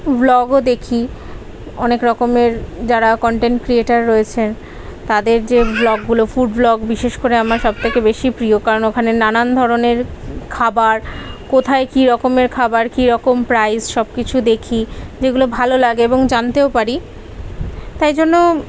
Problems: background conversations at intervals